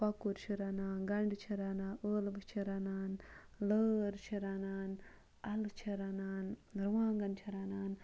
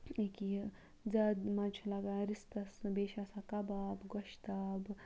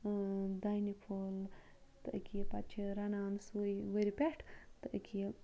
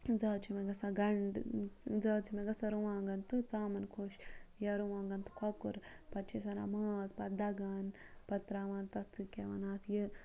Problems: background sounds at intervals